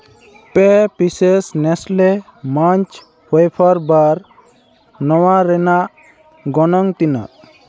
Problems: constant background noise